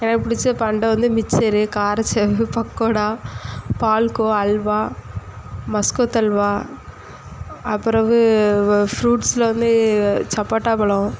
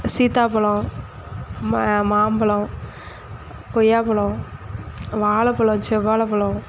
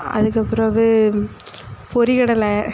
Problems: none marked